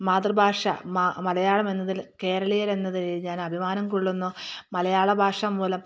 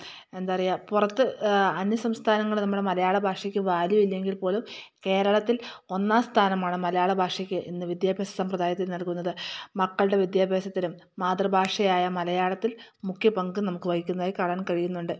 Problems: none marked